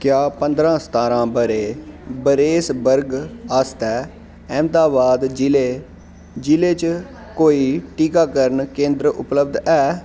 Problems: constant background noise